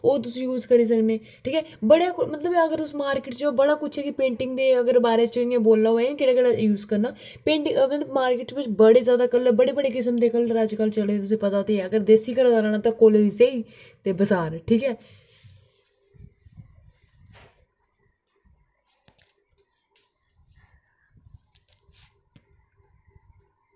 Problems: background conversations at intervals